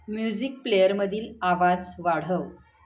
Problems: background sounds at intervals